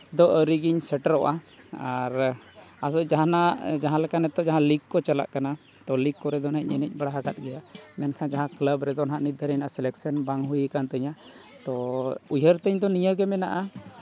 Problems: none marked